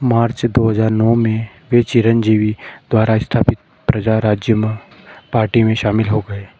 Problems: background sounds at intervals